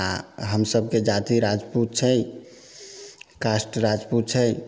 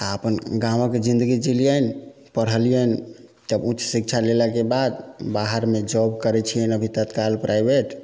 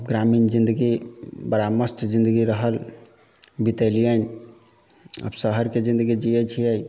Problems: background sounds at intervals